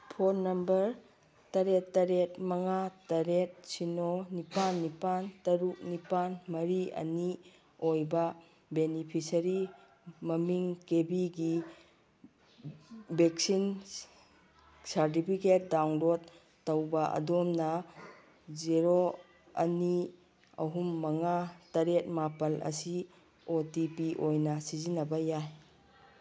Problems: background sounds at intervals